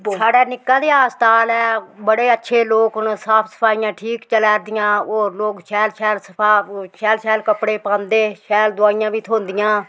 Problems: background sounds at intervals